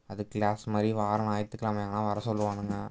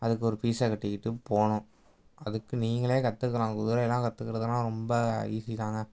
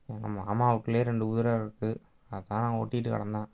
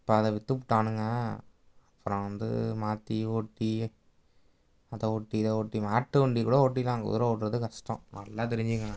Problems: background sounds at intervals